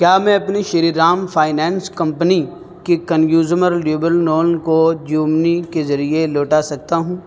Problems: constant background noise